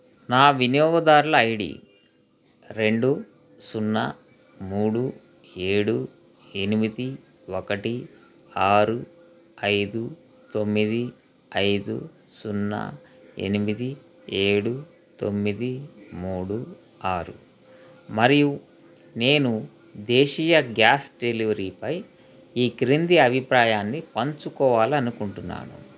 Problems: constant background noise